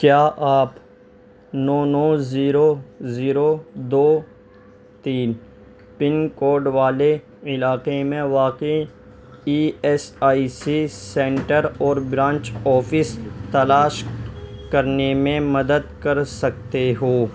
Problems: background sounds at intervals, background conversations at intervals